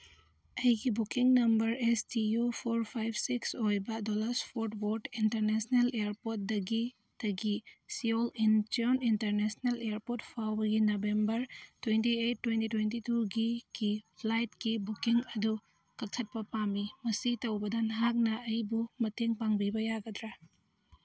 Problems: background sounds at intervals